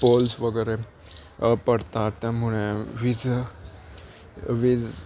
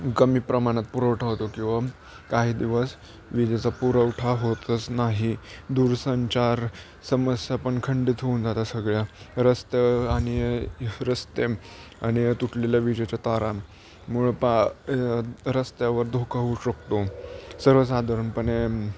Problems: background sounds at intervals